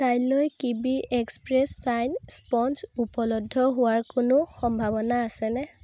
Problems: none marked